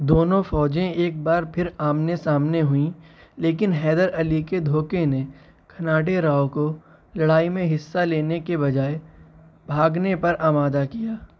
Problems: none marked